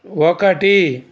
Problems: none marked